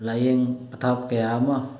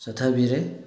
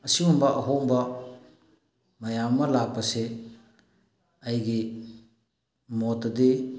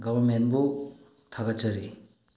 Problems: background sounds at intervals, low volume